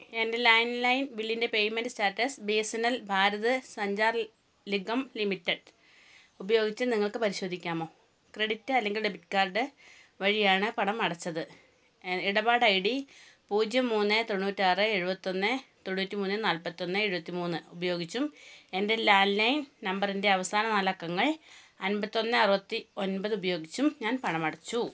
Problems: none marked